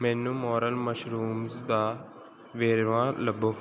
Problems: background sounds at intervals